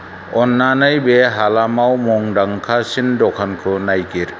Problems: constant background noise